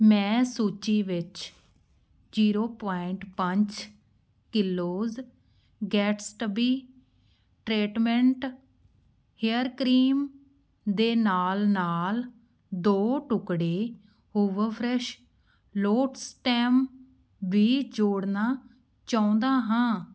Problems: none marked